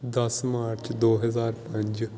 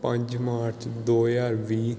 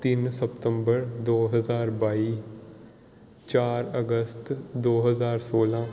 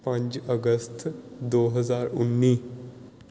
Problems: background sounds at intervals